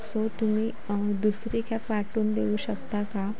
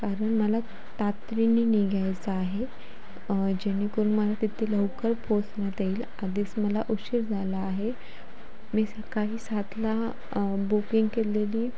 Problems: constant background noise, background conversations at intervals